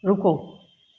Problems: constant background noise